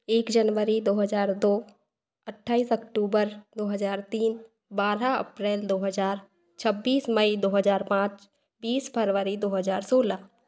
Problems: constant background noise